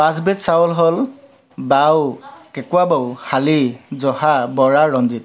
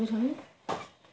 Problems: constant background noise